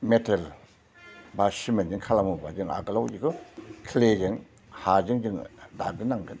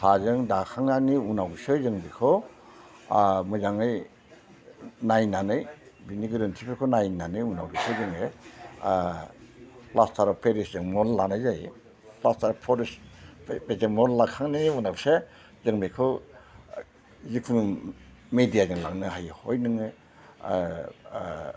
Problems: none marked